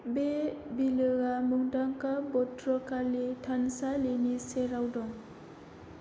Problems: constant background noise